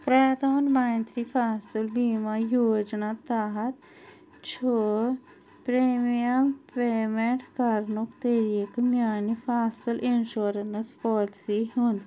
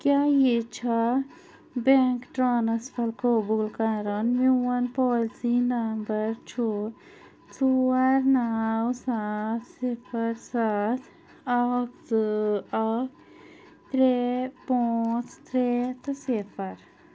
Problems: none marked